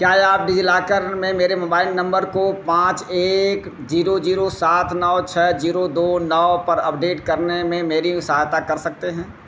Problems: none marked